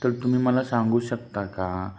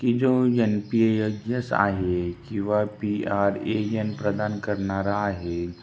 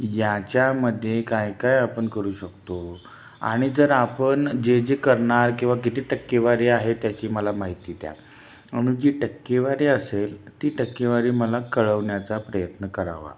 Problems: constant background noise